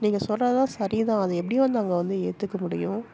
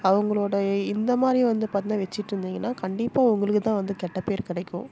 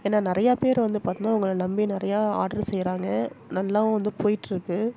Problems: constant background noise, background conversations at intervals